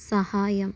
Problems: low volume